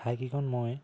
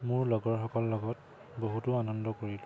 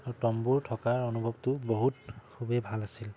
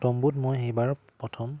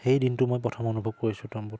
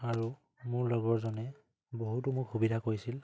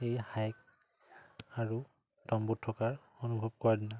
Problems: none marked